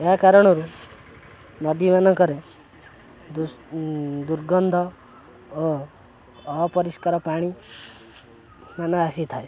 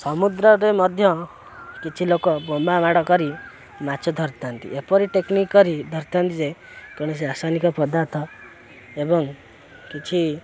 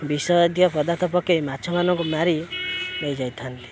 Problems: constant background noise